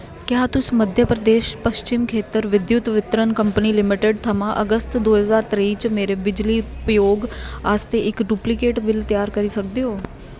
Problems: background sounds at intervals